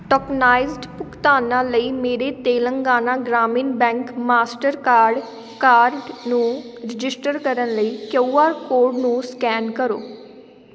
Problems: background sounds at intervals